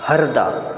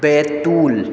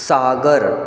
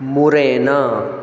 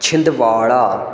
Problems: none marked